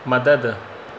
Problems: constant background noise, echo